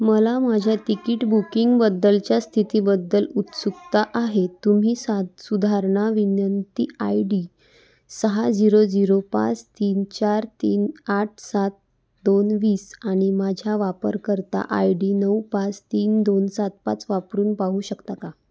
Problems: none marked